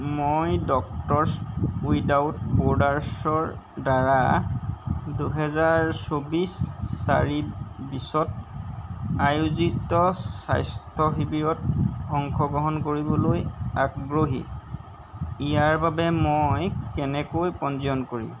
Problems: none marked